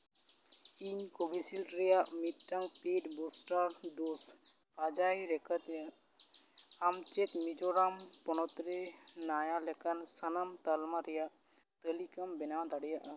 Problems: background sounds at intervals, echo